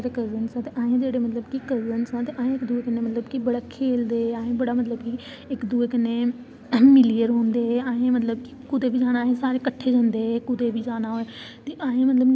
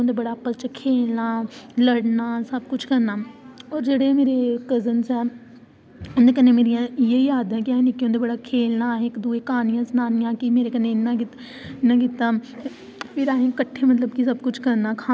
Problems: none marked